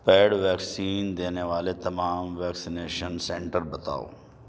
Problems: none marked